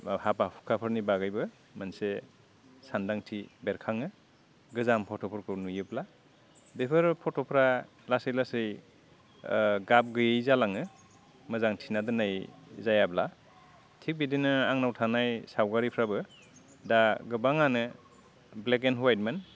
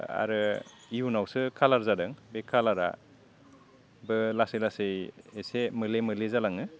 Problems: low volume